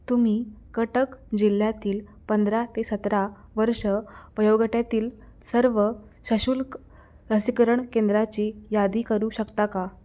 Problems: none marked